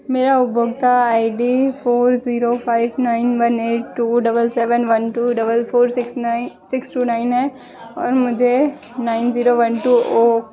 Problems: constant background noise